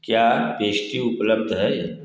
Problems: echo